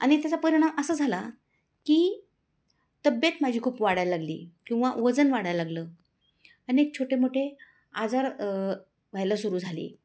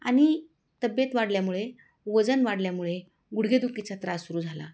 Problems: background sounds at intervals